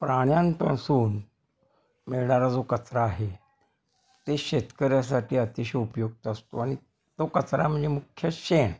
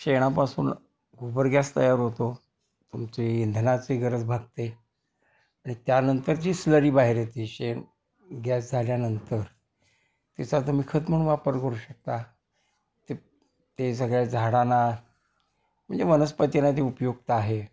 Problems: constant background noise, background conversations at intervals